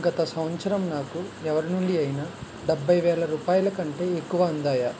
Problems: constant background noise